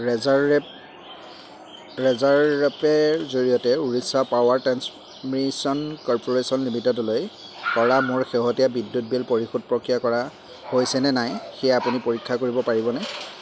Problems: background sounds at intervals